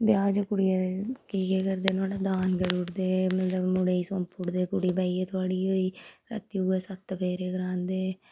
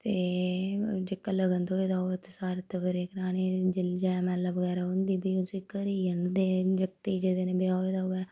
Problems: background sounds at intervals